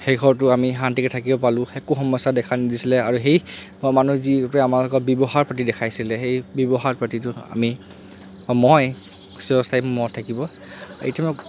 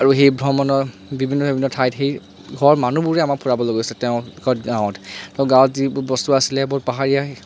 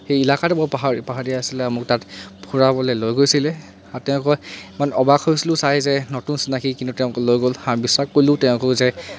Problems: constant background noise